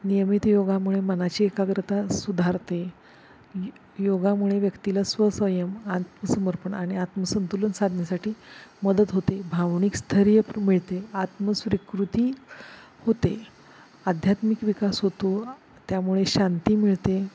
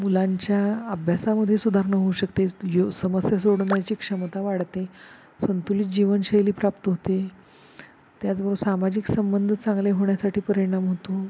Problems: constant background noise